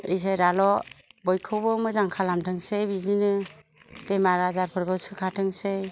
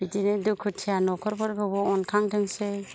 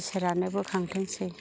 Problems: low volume